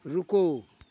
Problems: constant background noise